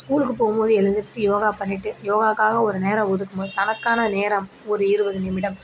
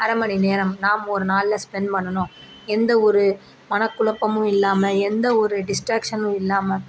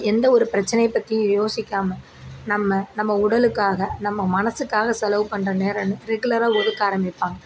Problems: background sounds at intervals